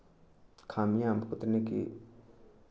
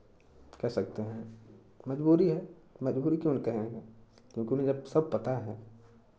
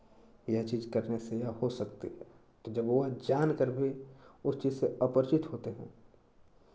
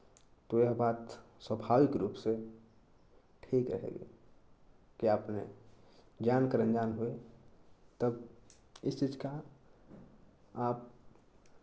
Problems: none marked